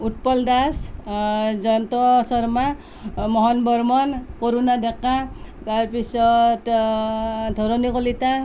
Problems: constant background noise